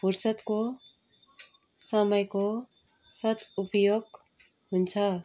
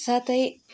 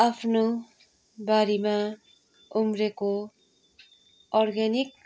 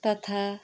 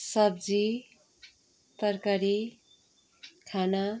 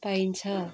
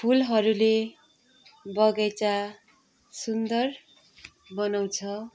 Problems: background sounds at intervals